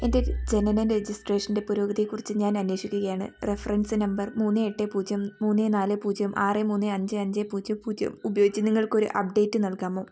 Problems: none marked